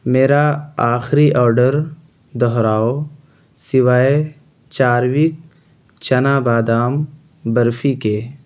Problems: constant background noise